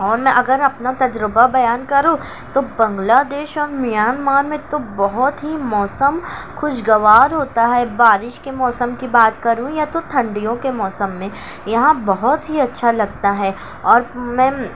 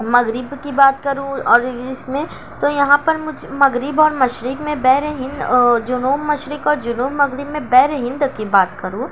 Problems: constant background noise